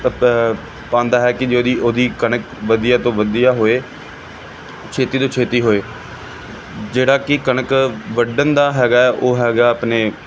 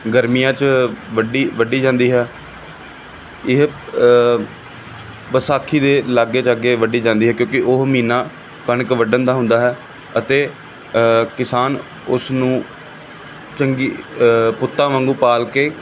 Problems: constant background noise